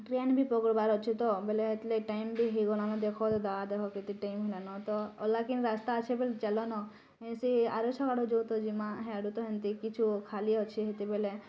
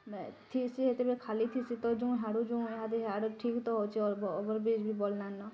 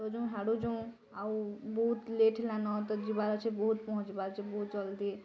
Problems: none marked